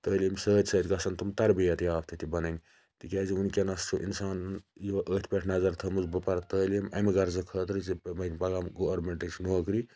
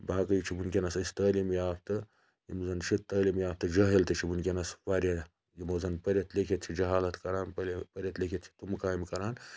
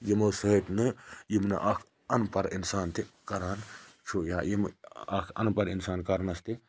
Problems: background sounds at intervals, low volume